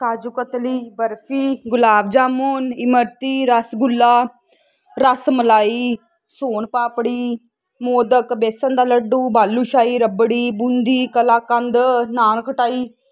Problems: constant background noise